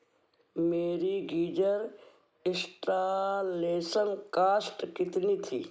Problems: background sounds at intervals